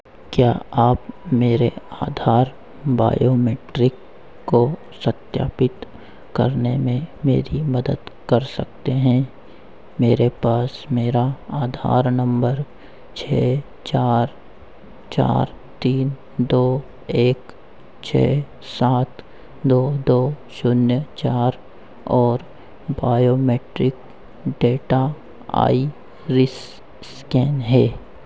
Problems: constant background noise